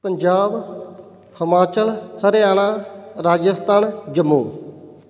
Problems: background sounds at intervals